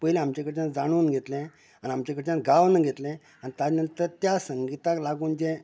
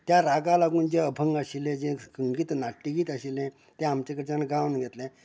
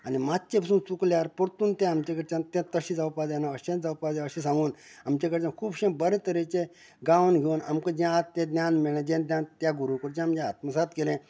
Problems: background conversations at intervals